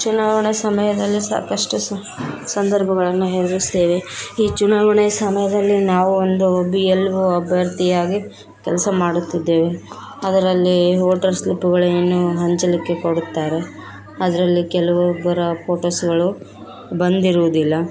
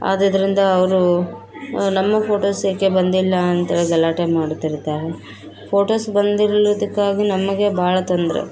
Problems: background sounds at intervals